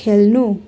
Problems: constant background noise